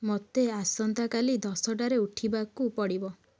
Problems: low volume